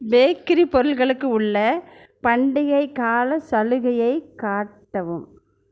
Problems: none marked